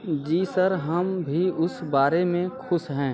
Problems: constant background noise